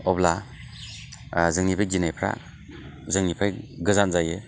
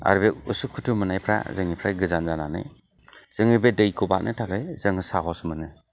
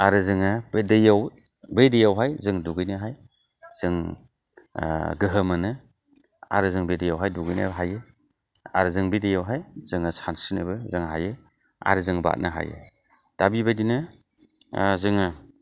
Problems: constant background noise